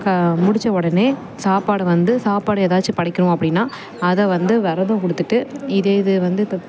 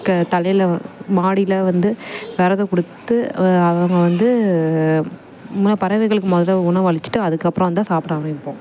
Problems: background sounds at intervals